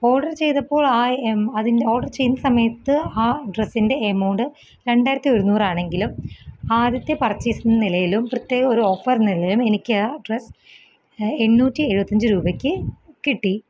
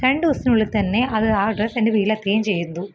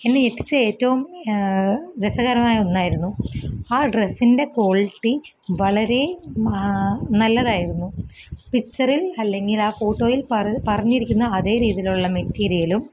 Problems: none marked